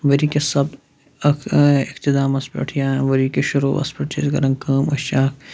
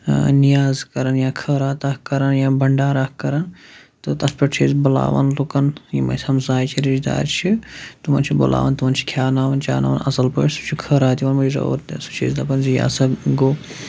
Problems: constant background noise